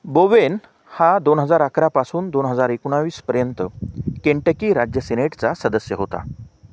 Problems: constant background noise